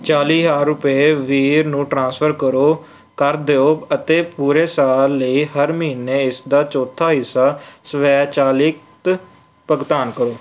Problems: none marked